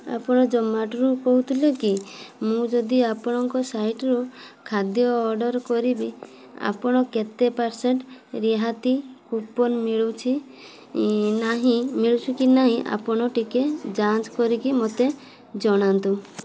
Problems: constant background noise